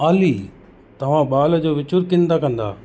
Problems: constant background noise